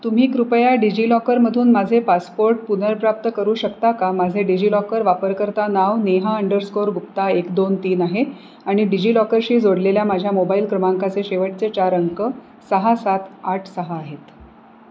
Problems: none marked